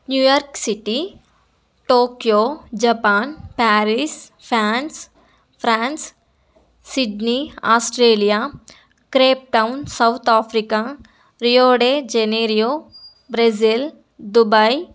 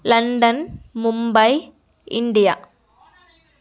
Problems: none marked